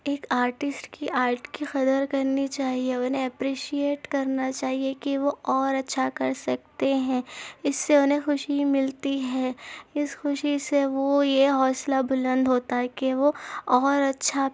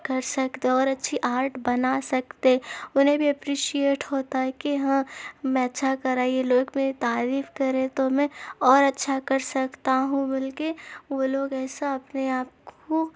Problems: background sounds at intervals